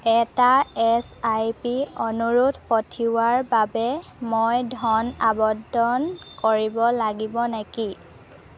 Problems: constant background noise, background conversations at intervals